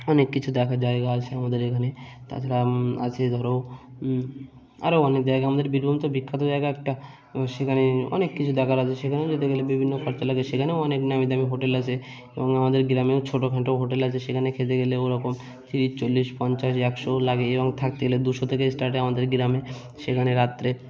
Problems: none marked